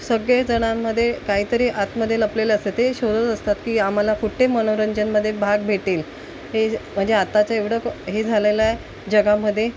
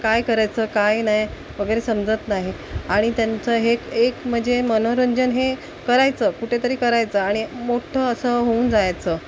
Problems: constant background noise